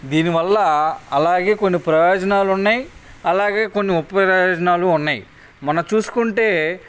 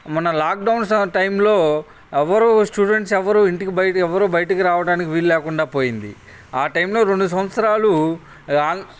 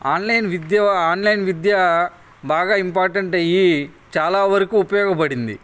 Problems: none marked